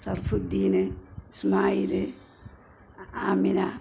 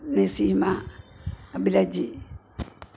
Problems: background sounds at intervals